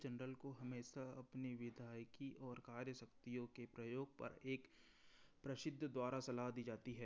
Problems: low volume